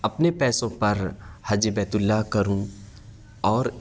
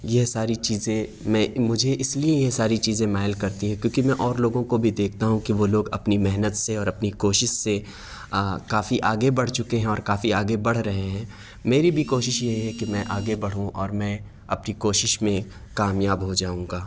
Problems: none marked